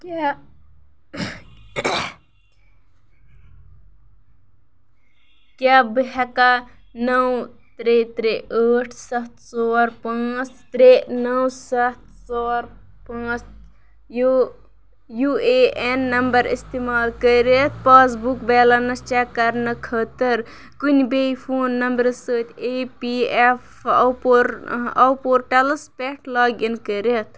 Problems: background sounds at intervals